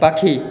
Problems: none marked